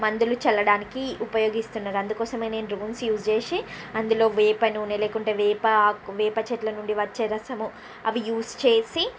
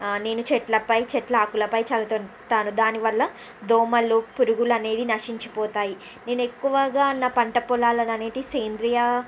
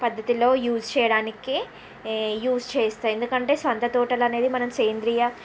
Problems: constant background noise